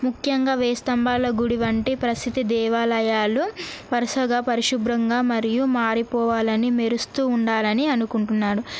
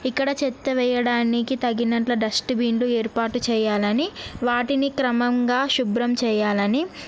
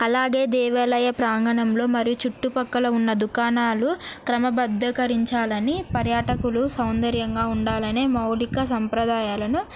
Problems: background sounds at intervals